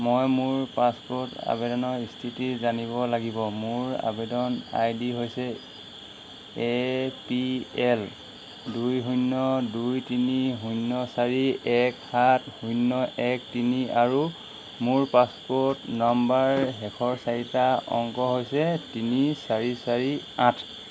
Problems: constant background noise